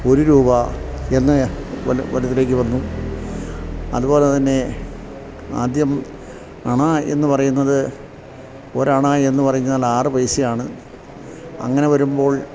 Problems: constant background noise